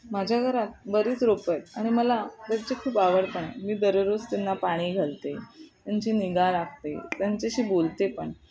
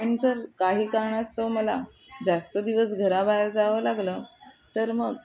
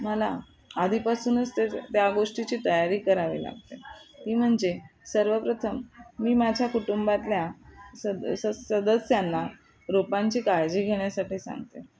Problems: none marked